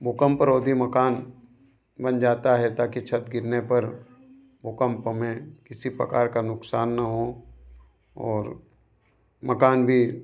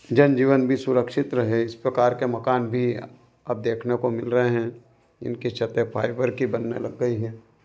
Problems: none marked